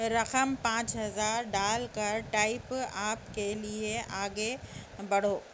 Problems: low volume